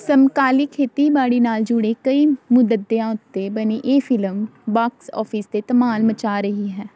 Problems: background conversations at intervals